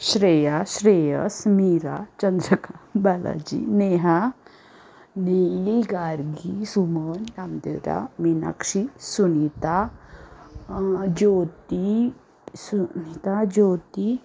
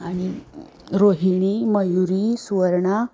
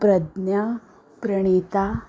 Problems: constant background noise